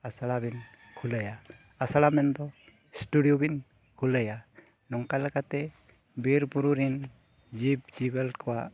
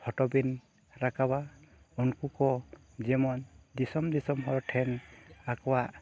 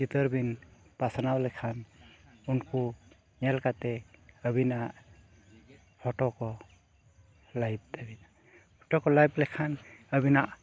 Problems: background sounds at intervals